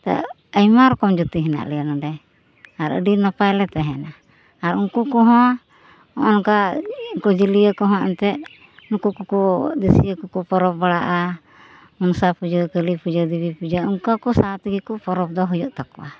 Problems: constant background noise, background conversations at intervals